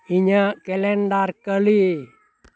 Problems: background conversations at intervals